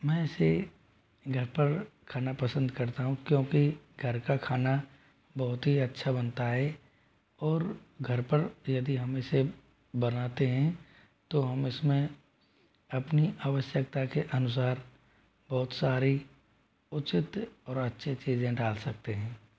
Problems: low volume